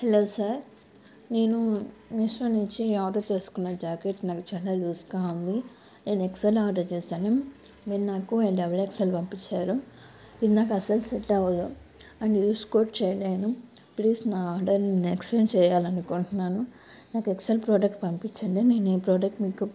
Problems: constant background noise